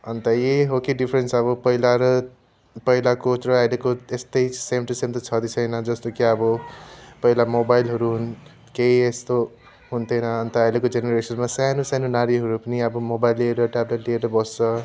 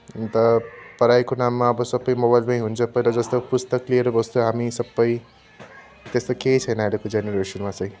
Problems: constant background noise